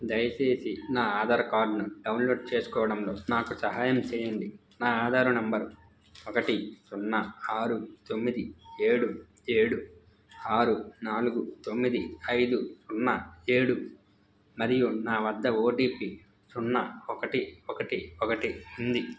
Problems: constant background noise